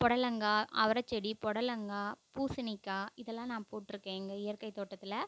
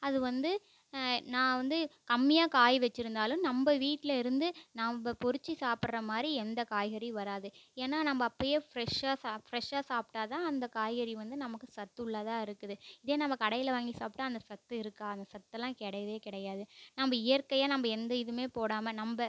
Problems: low volume